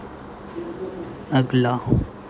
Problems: none marked